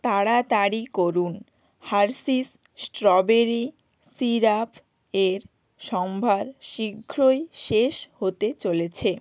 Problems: none marked